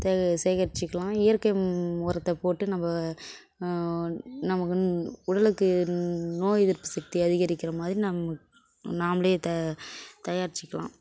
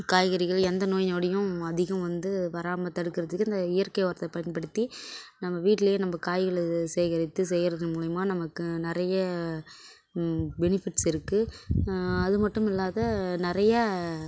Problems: constant background noise, background conversations at intervals